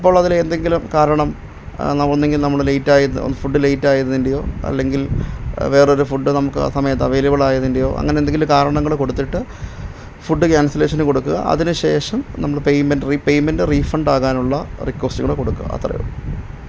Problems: none marked